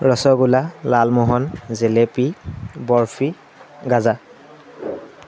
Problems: constant background noise